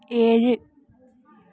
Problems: none marked